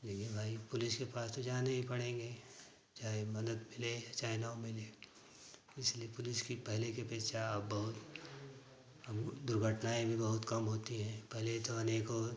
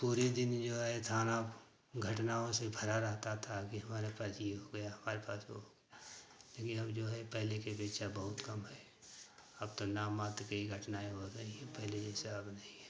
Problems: constant background noise